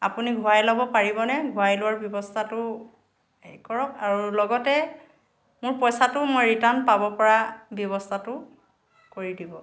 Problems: none marked